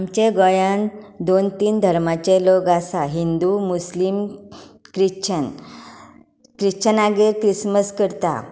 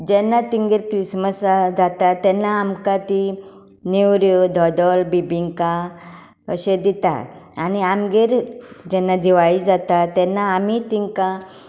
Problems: constant background noise